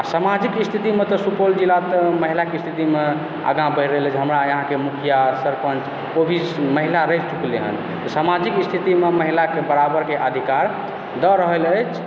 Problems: background sounds at intervals, background conversations at intervals